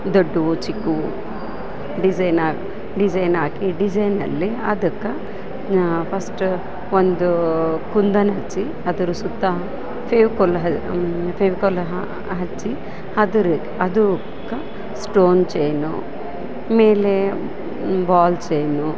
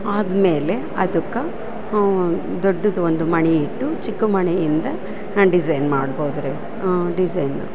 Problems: constant background noise